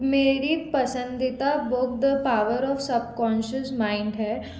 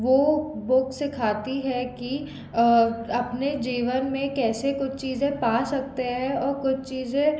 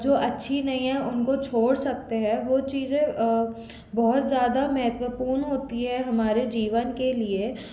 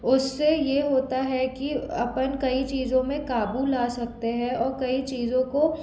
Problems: background sounds at intervals